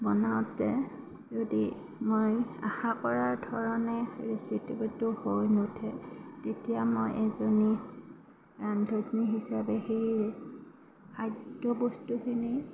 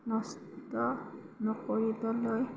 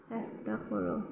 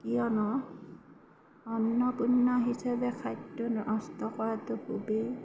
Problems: constant background noise